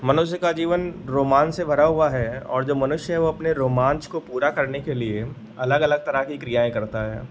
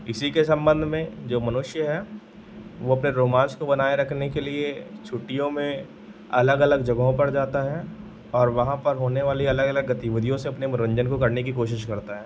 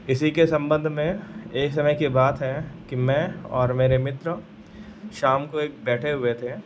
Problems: background sounds at intervals